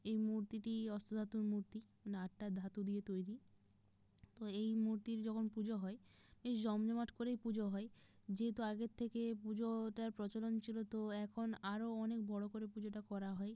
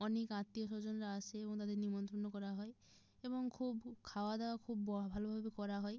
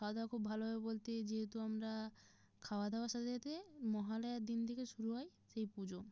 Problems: background sounds at intervals